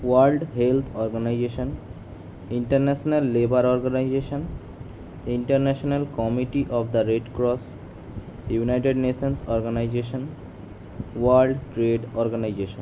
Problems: constant background noise